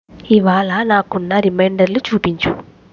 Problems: constant background noise